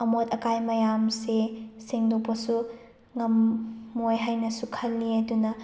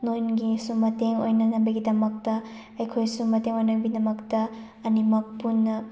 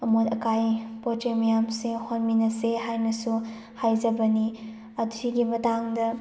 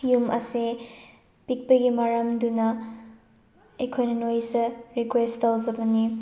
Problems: background sounds at intervals, background conversations at intervals